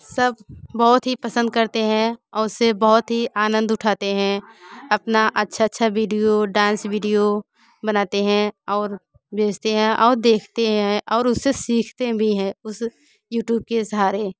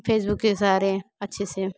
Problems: none marked